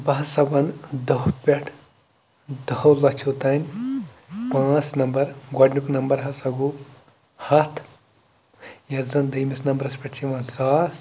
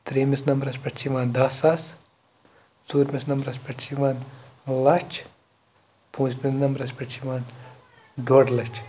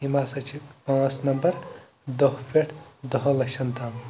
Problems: constant background noise